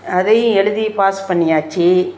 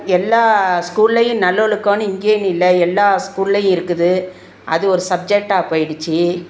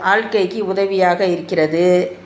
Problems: none marked